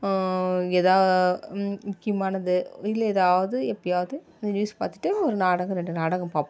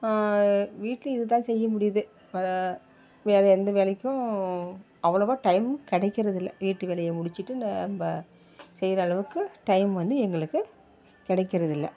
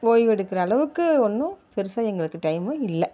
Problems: none marked